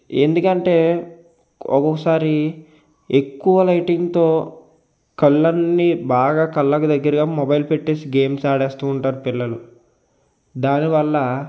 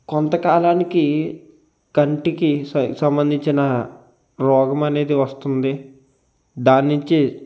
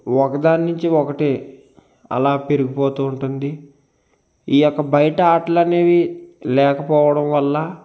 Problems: constant background noise